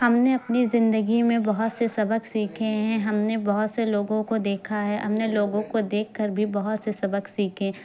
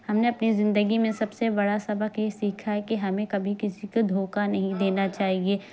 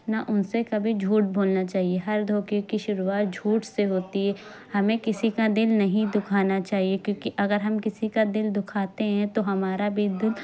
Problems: constant background noise